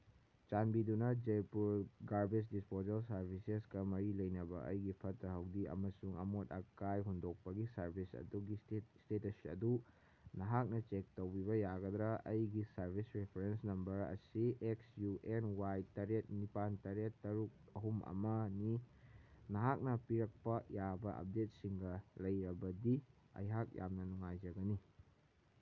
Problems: none marked